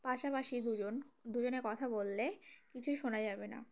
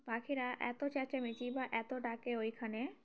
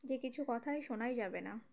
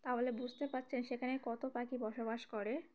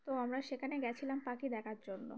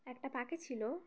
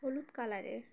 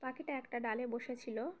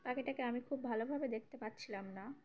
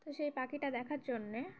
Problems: background sounds at intervals, background conversations at intervals